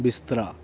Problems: none marked